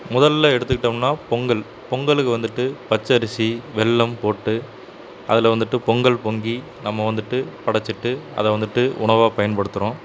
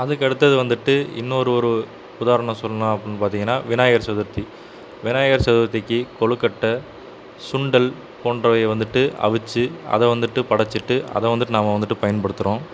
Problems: constant background noise